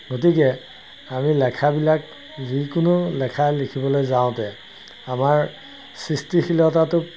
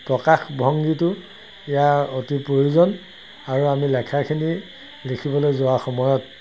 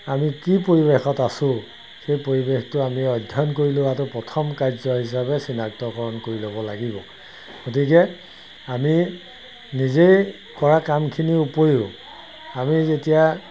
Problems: constant background noise